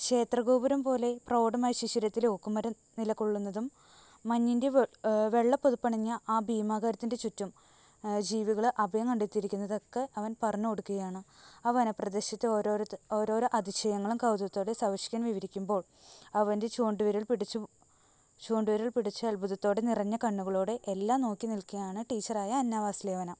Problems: constant background noise, low volume